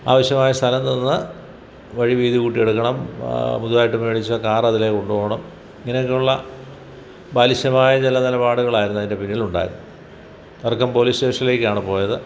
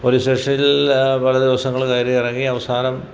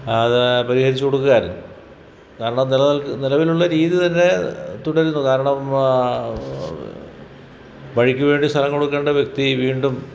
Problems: background sounds at intervals